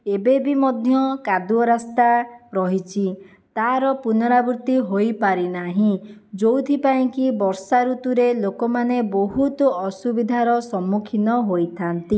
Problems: none marked